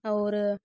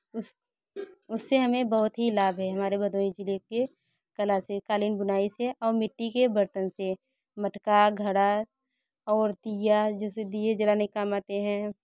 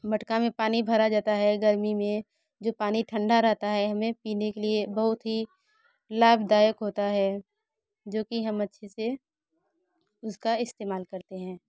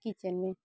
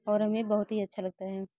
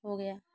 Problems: none marked